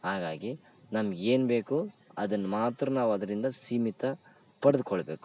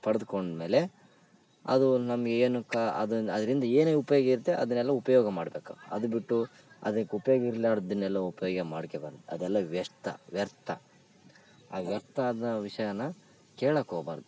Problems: none marked